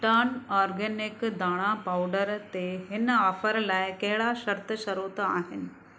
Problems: constant background noise